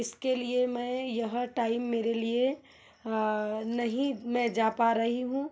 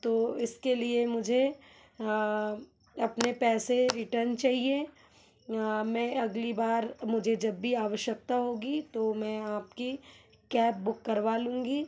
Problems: background sounds at intervals